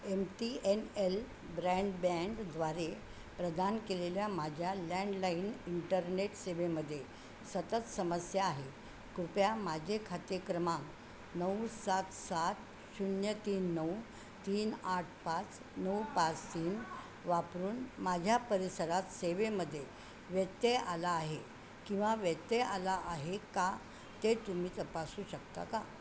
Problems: constant background noise, background conversations at intervals